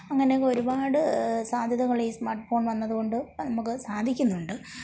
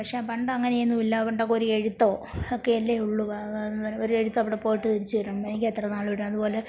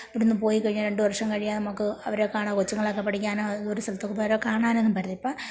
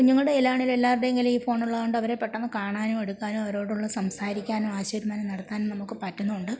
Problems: background sounds at intervals, low volume